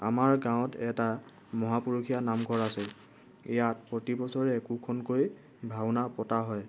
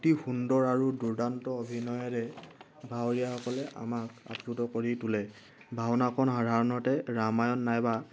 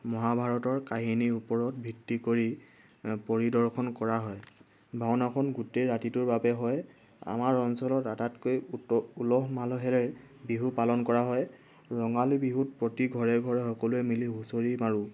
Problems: background sounds at intervals